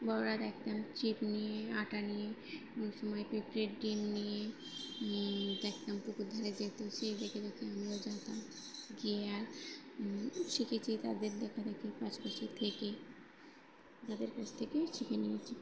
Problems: none marked